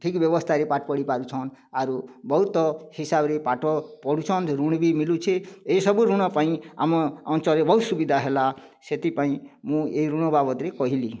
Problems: none marked